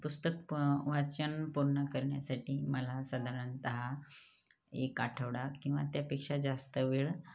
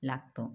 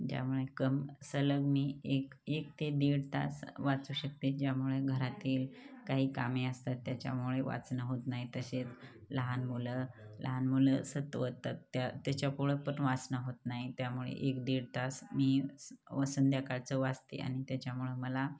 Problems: background sounds at intervals